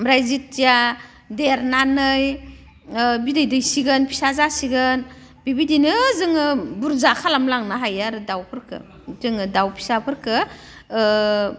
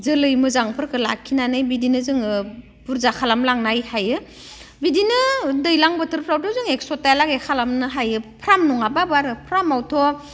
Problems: none marked